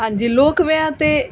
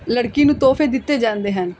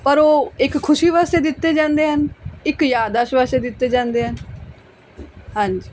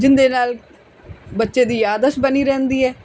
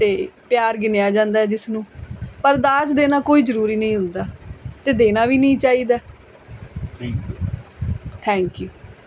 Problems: background conversations at intervals